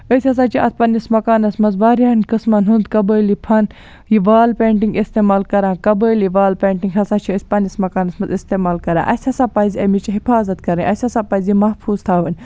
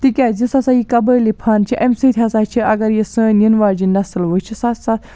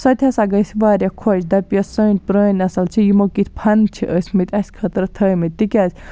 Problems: background sounds at intervals